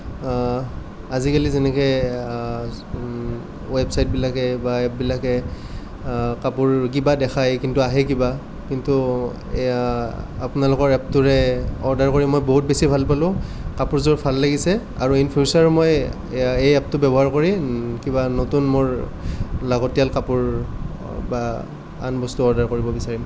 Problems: none marked